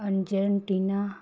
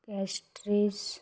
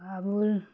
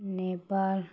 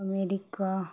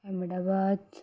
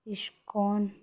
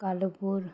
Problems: none marked